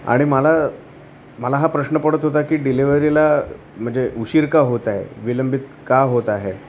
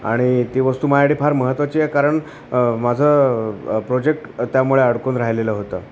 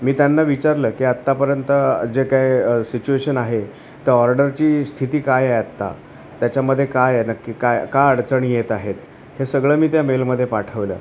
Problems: constant background noise, continuous background conversations